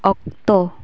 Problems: constant background noise